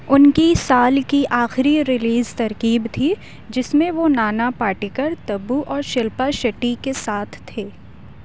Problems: none marked